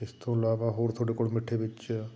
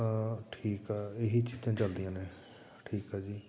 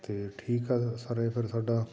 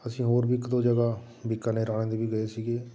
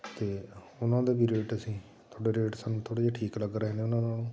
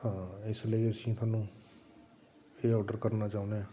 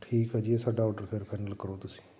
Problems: none marked